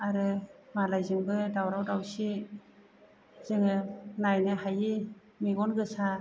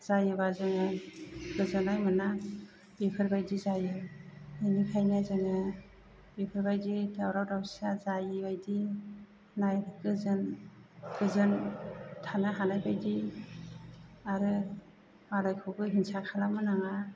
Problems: none marked